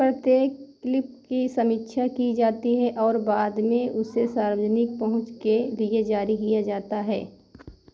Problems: constant background noise